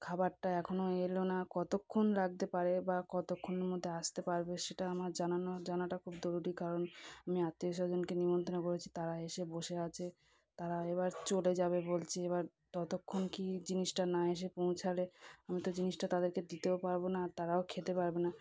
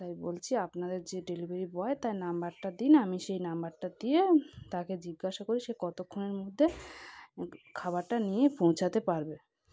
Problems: background sounds at intervals